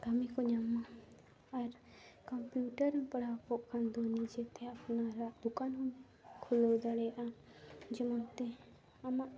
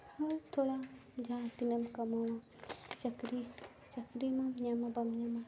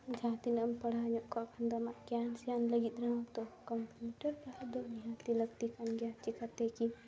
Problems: low volume